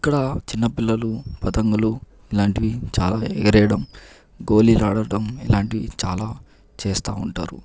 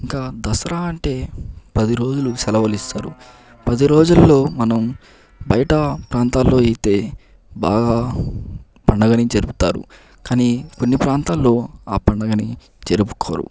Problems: none marked